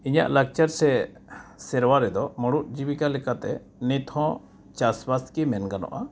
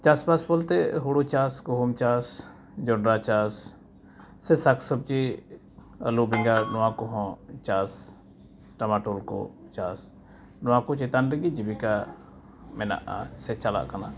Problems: background sounds at intervals